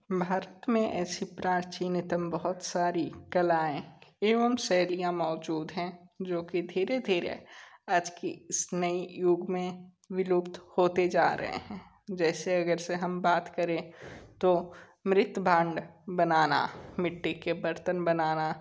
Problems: background sounds at intervals